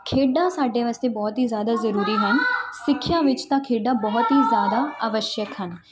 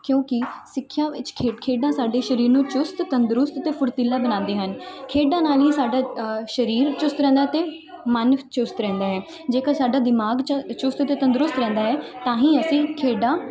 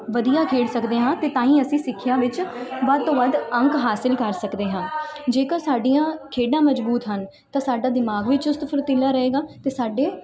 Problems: continuous background conversations